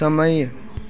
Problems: none marked